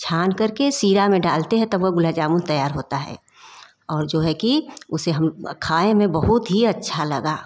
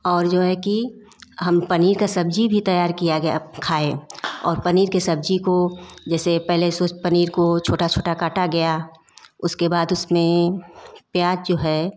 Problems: background sounds at intervals